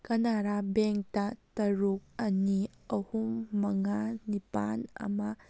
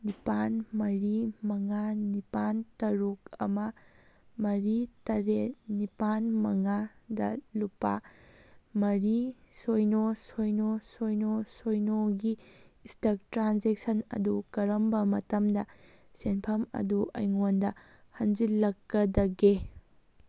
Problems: background sounds at intervals